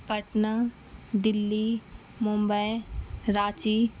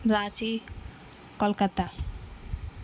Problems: constant background noise